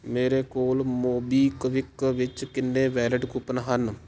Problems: none marked